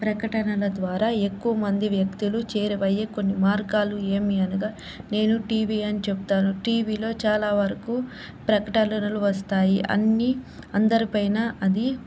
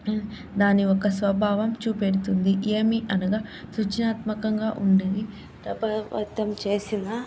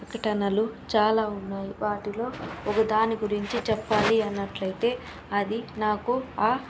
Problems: background sounds at intervals